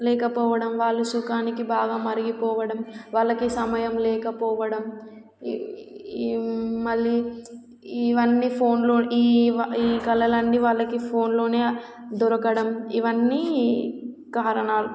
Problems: background sounds at intervals